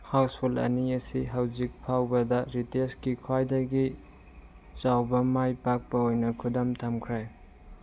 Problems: background sounds at intervals